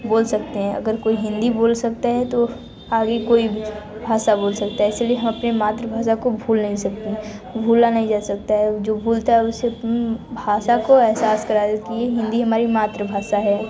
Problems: none marked